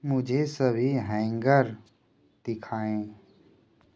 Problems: background sounds at intervals